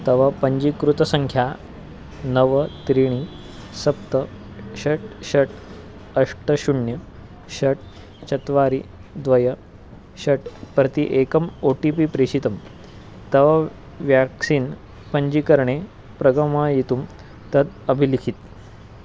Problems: constant background noise